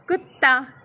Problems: background sounds at intervals